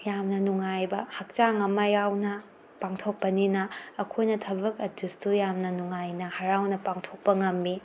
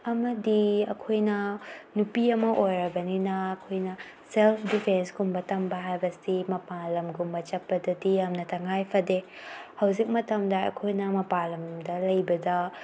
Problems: none marked